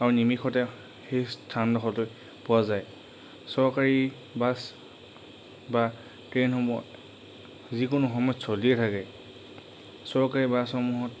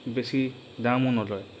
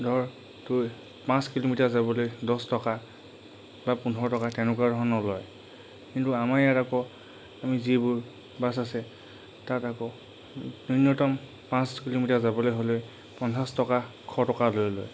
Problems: constant background noise